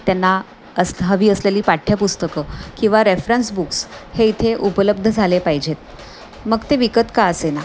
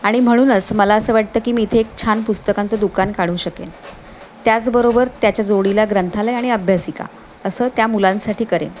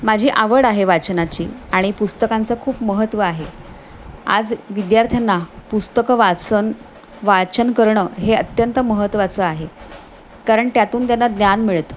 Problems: none marked